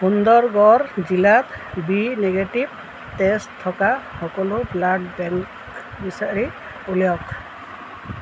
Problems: none marked